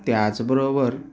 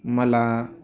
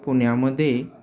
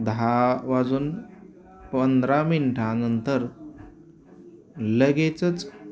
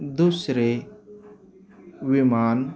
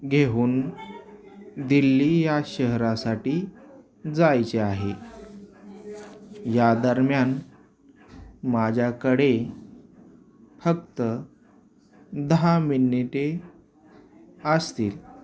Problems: constant background noise, continuous background conversations